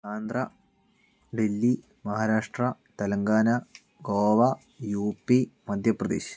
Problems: none marked